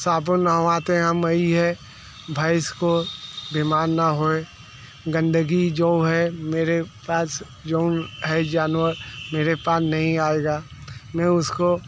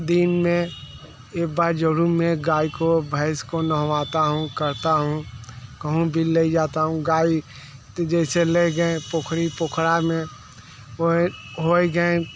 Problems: constant background noise, background conversations at intervals